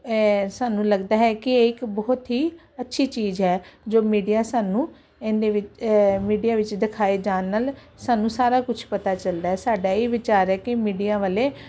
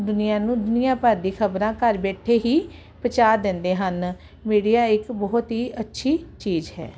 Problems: none marked